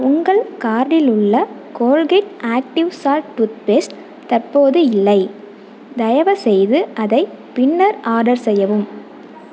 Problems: constant background noise